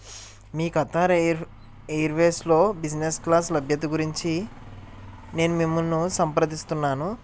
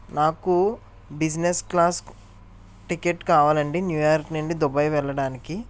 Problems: none marked